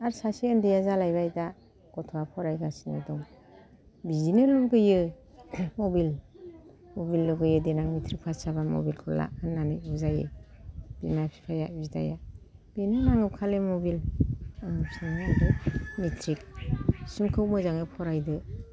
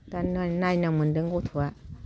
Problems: low volume